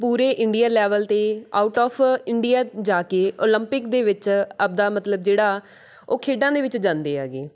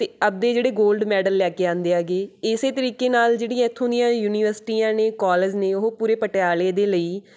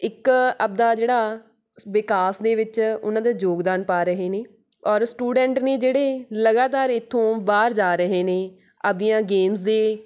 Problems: background sounds at intervals